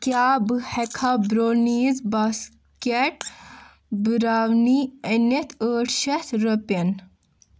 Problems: none marked